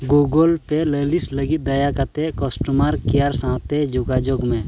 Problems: constant background noise